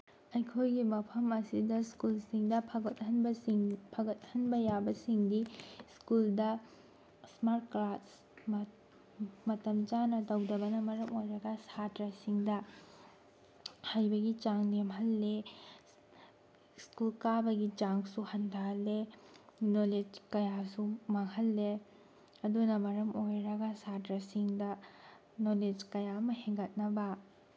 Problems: background sounds at intervals